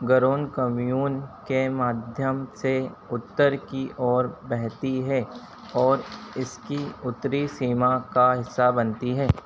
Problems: constant background noise